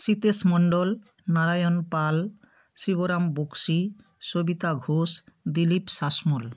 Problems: none marked